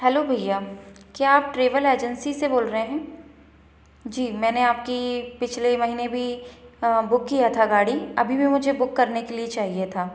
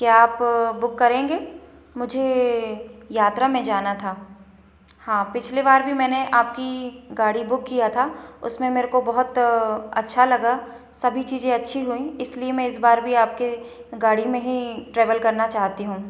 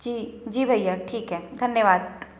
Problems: none marked